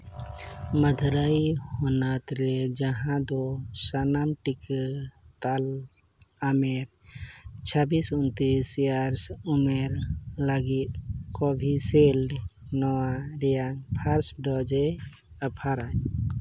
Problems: background sounds at intervals